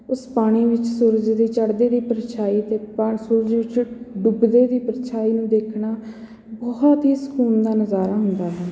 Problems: constant background noise